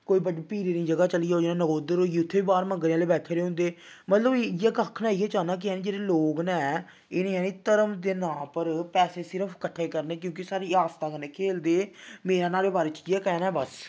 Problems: none marked